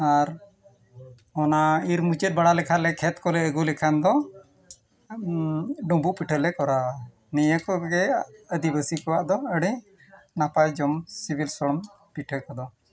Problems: background sounds at intervals, background conversations at intervals